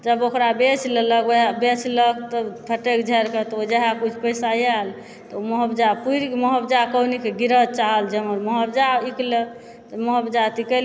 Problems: background sounds at intervals